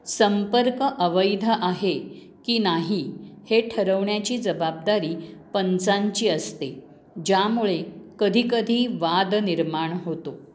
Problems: none marked